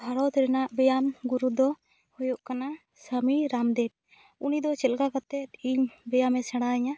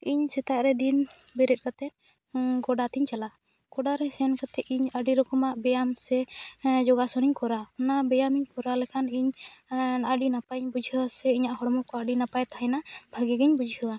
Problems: none marked